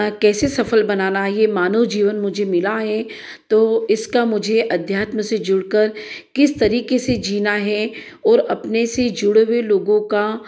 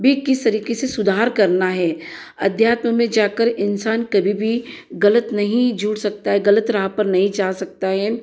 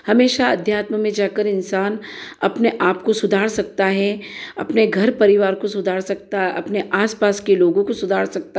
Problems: echo